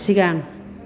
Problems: constant background noise